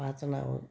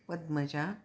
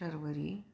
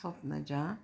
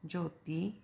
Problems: constant background noise